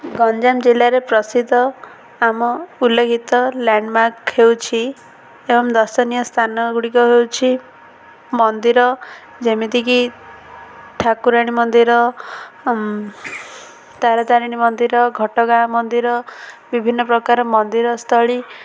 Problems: none marked